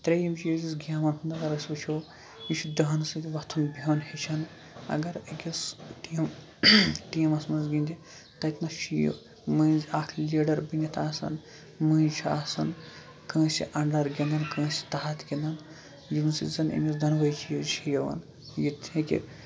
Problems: constant background noise, low volume